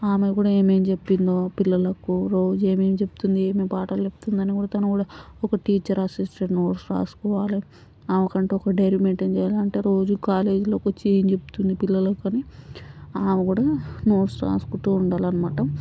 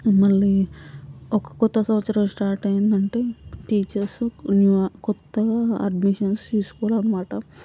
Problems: constant background noise